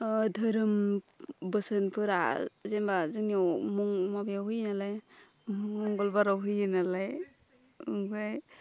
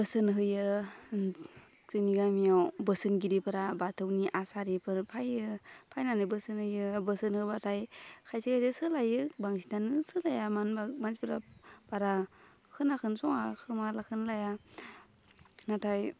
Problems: constant background noise